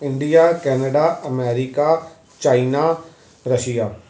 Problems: none marked